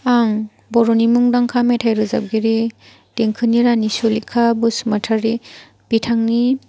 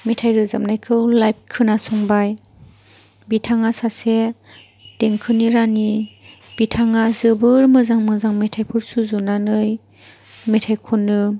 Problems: none marked